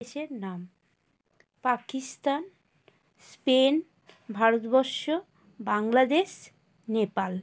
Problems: constant background noise